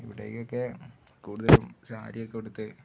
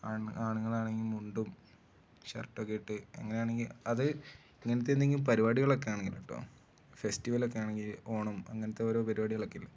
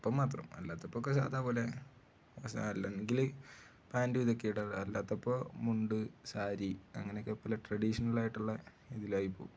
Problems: low volume